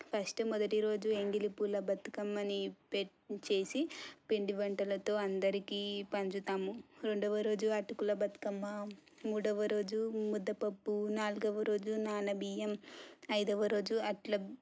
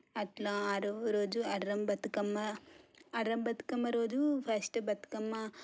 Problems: low volume